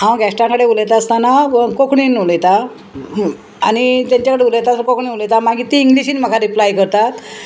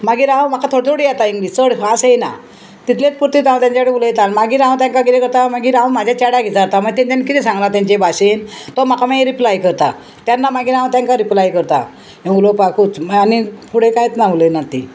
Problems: constant background noise